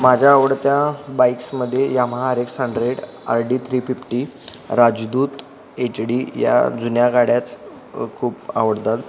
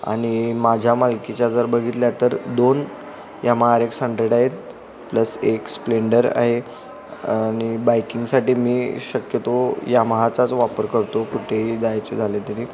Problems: background conversations at intervals